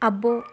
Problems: none marked